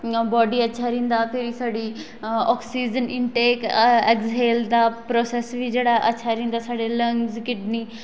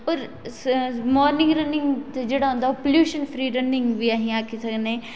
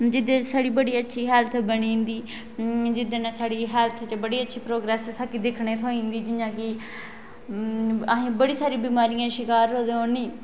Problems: none marked